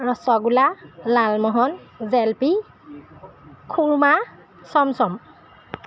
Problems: background sounds at intervals